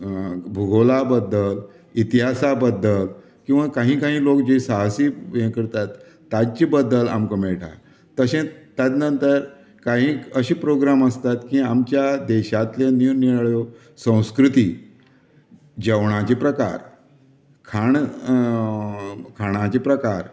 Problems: constant background noise